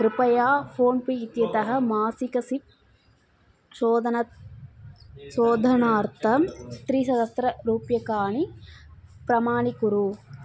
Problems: constant background noise, background conversations at intervals